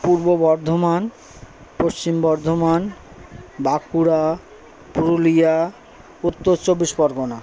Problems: constant background noise, background conversations at intervals